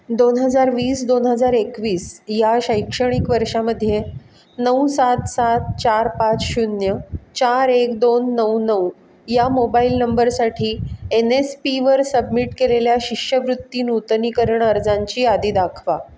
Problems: constant background noise